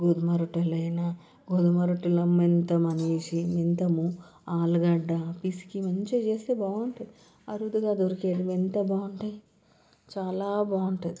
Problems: background sounds at intervals